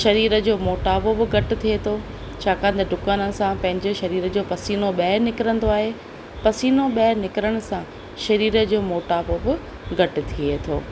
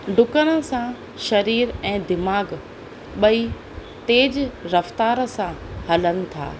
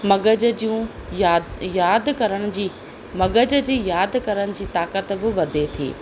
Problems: constant background noise